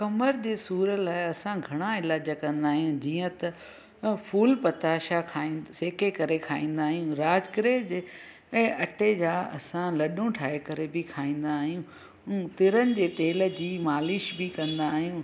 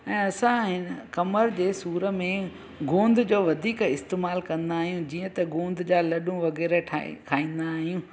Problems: constant background noise, echo